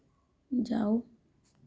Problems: low volume